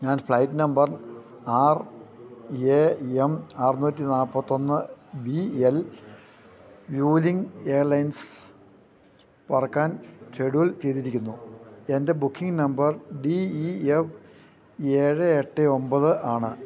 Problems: constant background noise, low volume